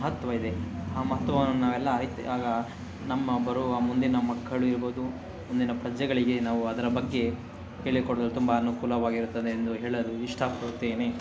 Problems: none marked